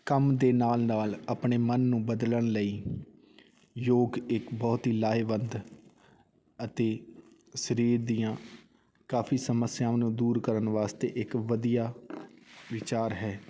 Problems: none marked